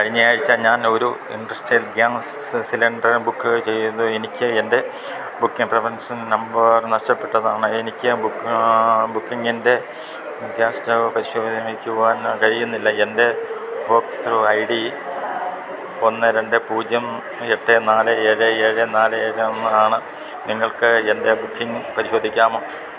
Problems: constant background noise, background conversations at intervals